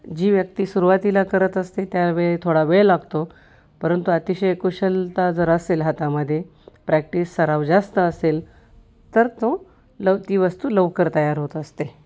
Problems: constant background noise, background conversations at intervals